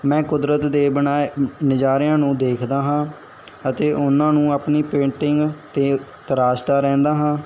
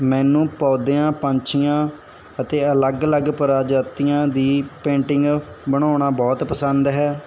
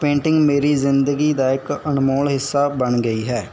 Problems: none marked